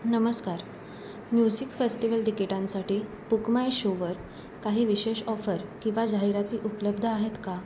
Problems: constant background noise